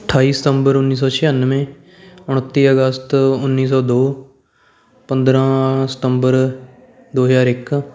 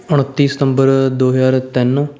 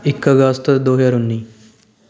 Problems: continuous background conversations